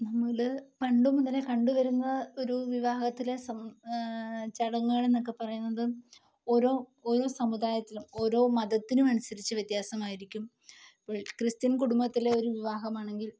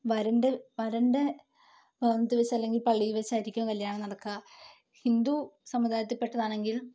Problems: low volume